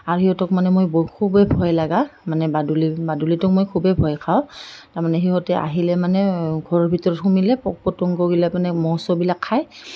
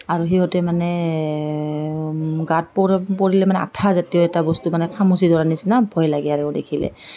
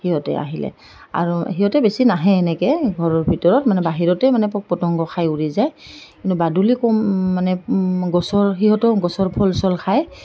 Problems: none marked